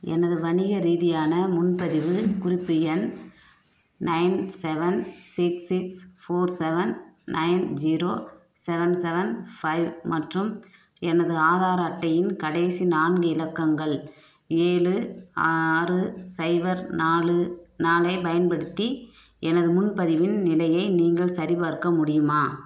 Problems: background sounds at intervals